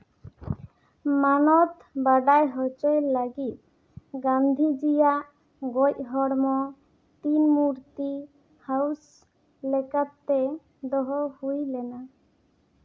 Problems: none marked